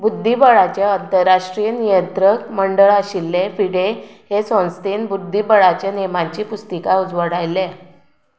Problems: background sounds at intervals